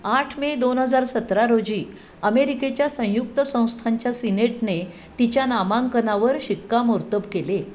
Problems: constant background noise